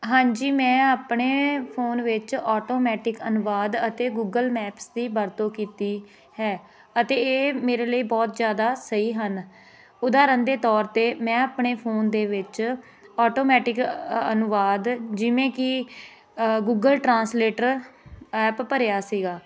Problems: continuous background conversations